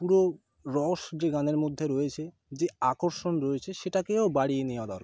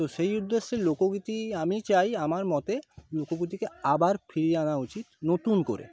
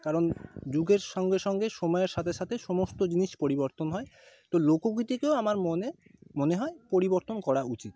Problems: background conversations at intervals